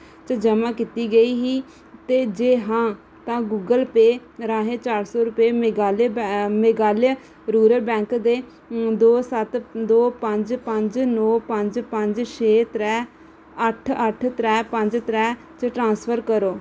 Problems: none marked